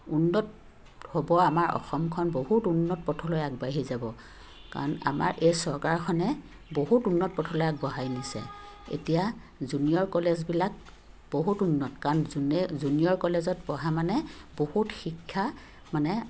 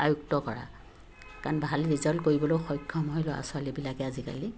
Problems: constant background noise